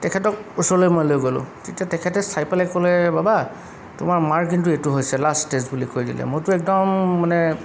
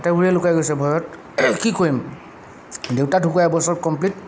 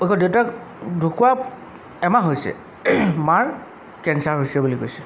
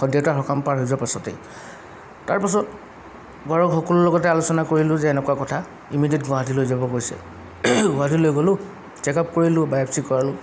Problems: background sounds at intervals